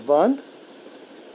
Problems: constant background noise